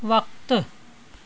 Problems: constant background noise